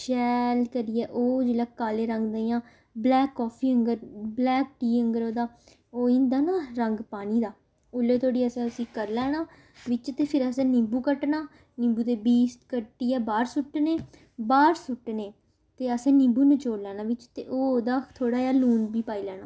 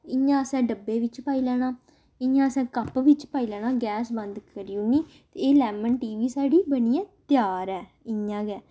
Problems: none marked